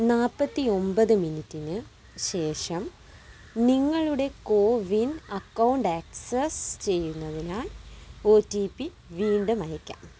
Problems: none marked